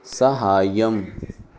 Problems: background conversations at intervals